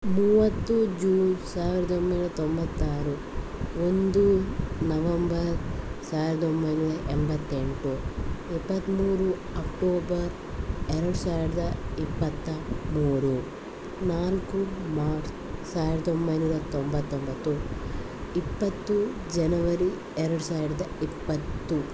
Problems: continuous background conversations